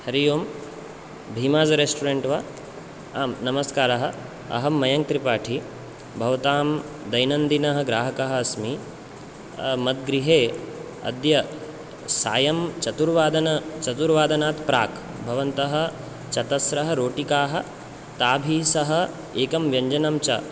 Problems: none marked